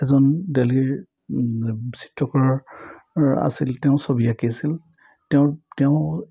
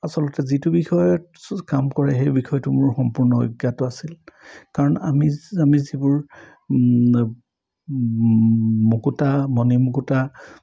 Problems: none marked